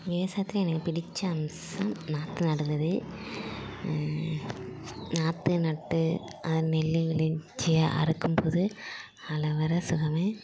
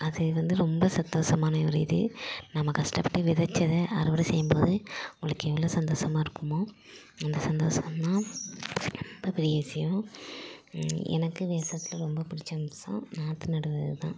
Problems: none marked